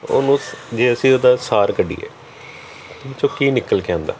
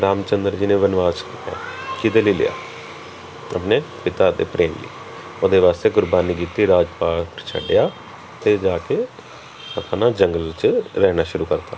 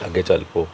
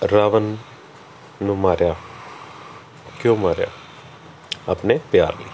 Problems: continuous background conversations